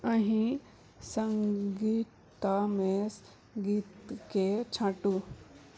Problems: background sounds at intervals, low volume